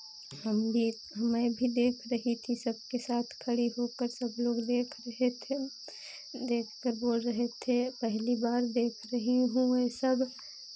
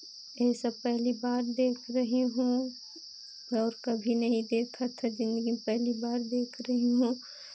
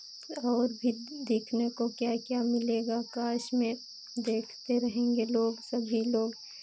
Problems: constant background noise